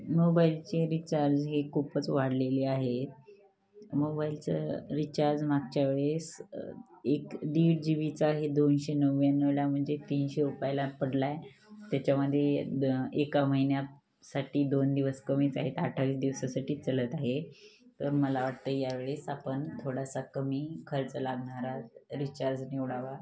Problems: background sounds at intervals